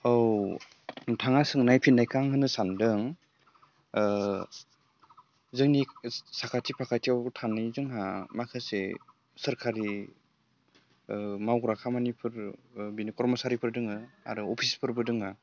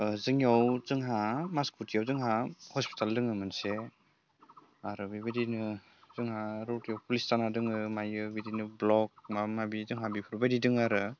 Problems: low volume